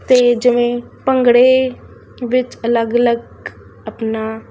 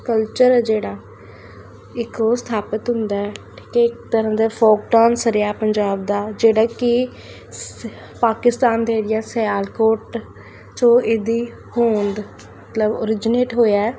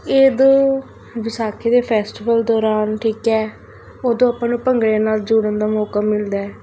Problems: constant background noise